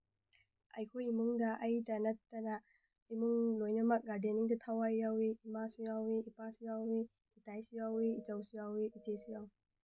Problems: low volume